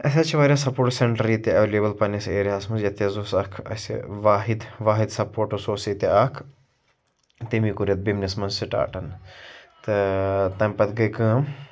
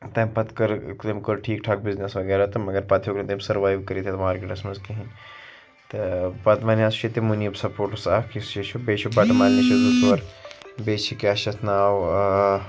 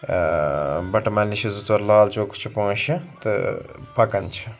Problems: constant background noise